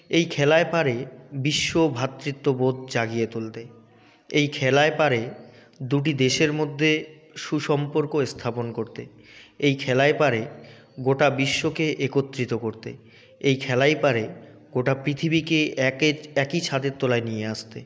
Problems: none marked